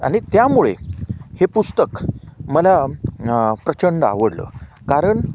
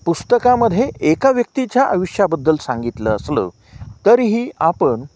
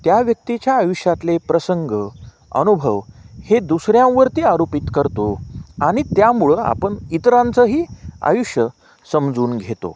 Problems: constant background noise